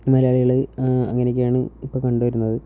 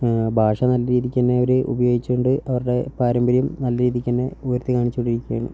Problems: low volume